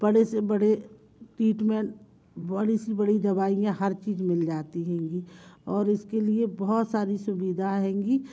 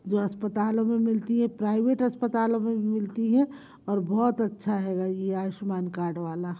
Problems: none marked